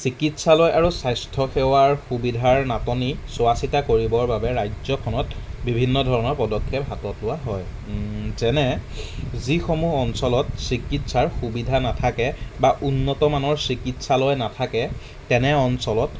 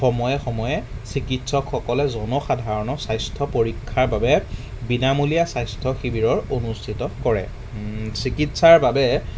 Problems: none marked